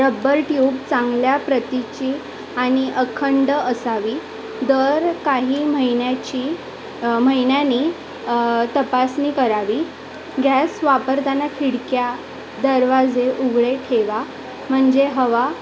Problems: constant background noise, continuous background conversations